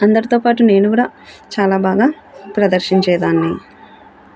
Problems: background sounds at intervals, background conversations at intervals